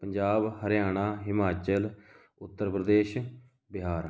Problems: none marked